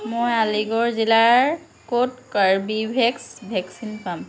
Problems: constant background noise